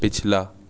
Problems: constant background noise